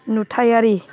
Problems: background sounds at intervals